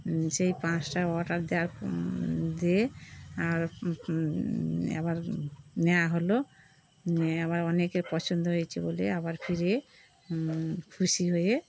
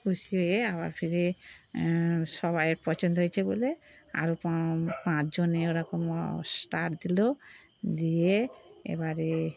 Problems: constant background noise